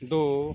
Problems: none marked